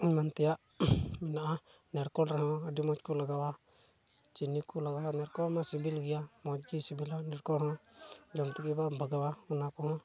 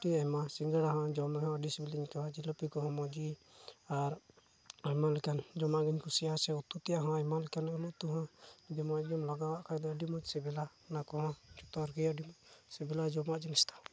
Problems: none marked